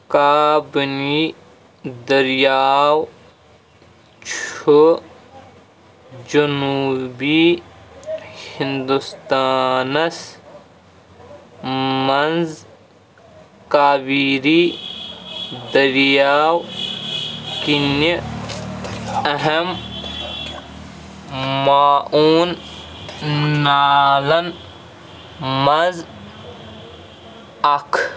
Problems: constant background noise